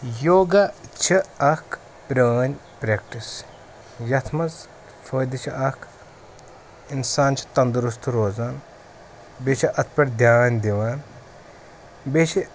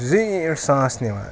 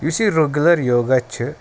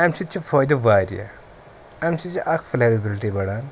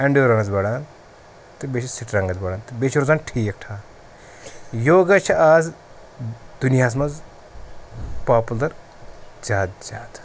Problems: none marked